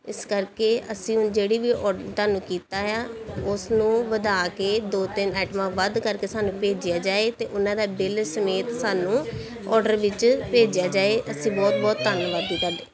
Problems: continuous background conversations